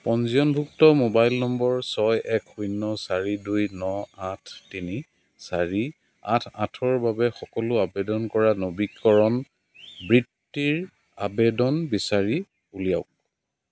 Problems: constant background noise